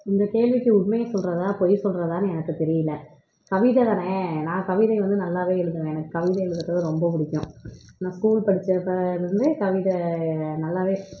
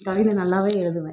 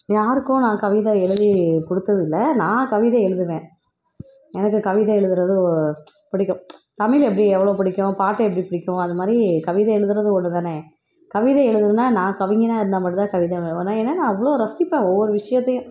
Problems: background sounds at intervals